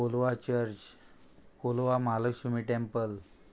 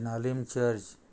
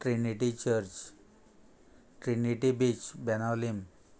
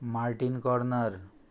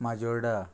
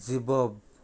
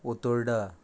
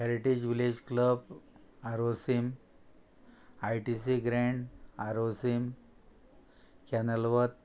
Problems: constant background noise